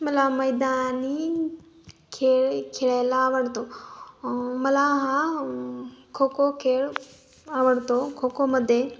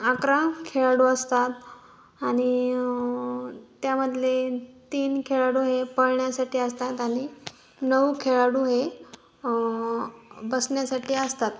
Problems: background sounds at intervals